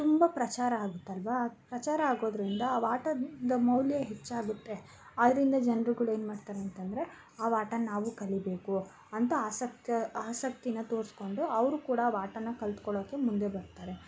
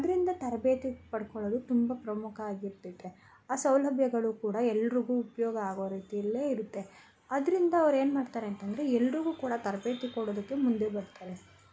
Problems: constant background noise